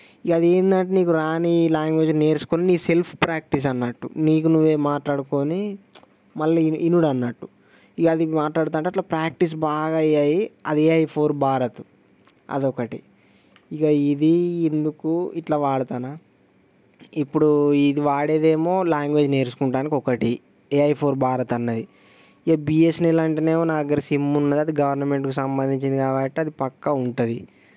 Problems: none marked